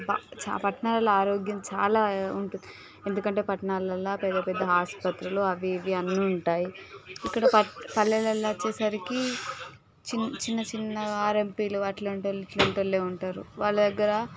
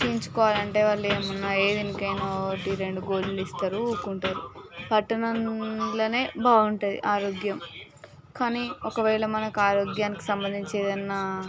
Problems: background sounds at intervals, continuous background conversations